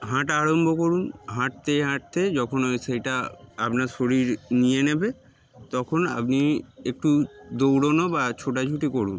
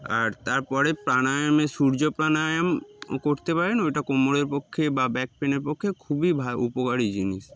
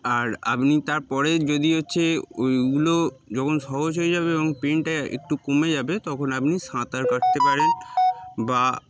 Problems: background sounds at intervals